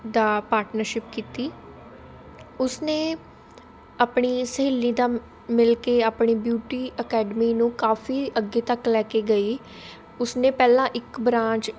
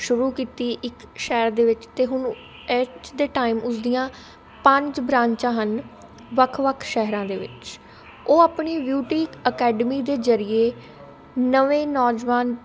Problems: constant background noise, continuous background conversations